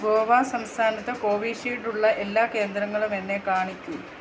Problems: constant background noise